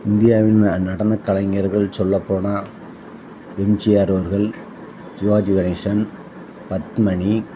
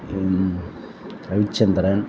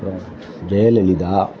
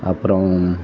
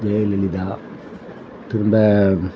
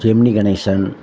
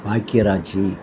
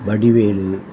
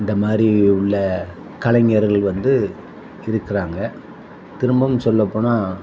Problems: constant background noise